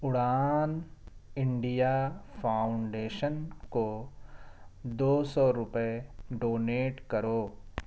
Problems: none marked